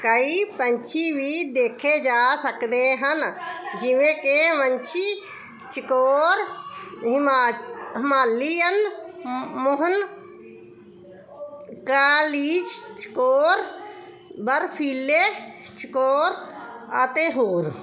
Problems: constant background noise